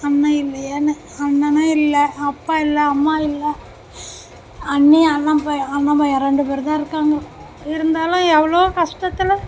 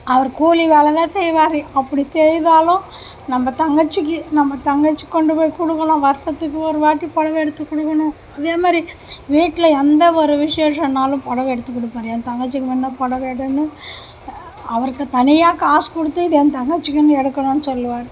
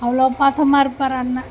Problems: background sounds at intervals